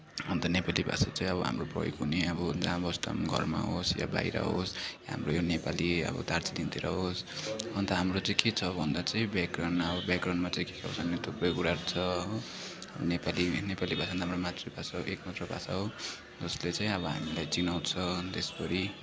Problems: constant background noise